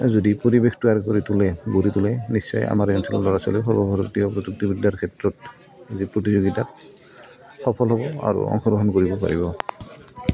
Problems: background sounds at intervals